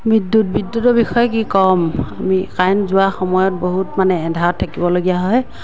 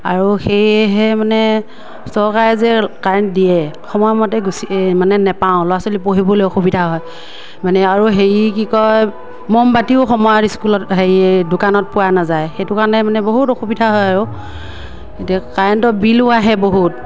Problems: none marked